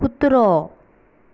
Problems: background sounds at intervals